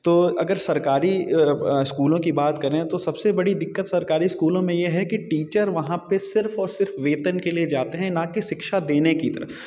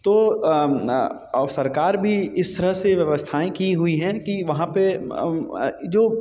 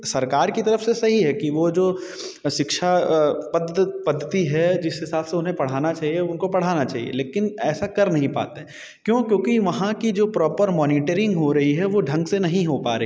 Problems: none marked